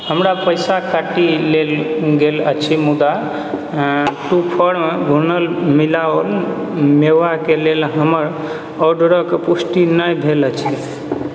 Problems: background sounds at intervals